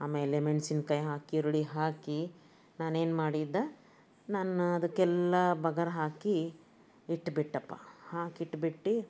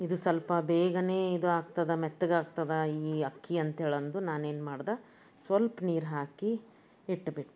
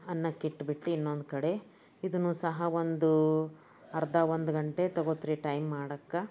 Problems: none marked